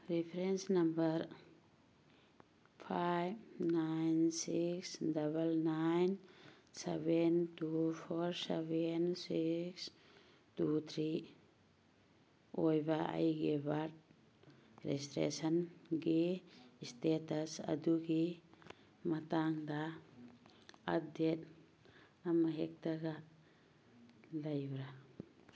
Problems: background sounds at intervals